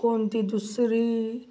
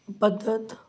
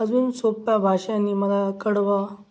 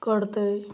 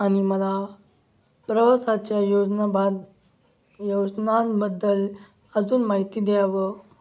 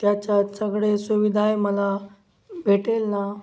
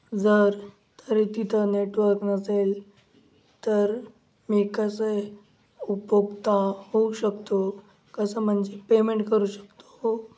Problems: none marked